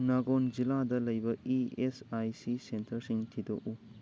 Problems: none marked